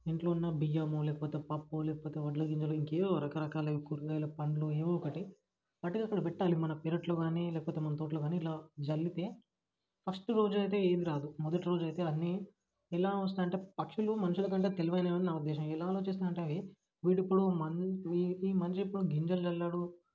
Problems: none marked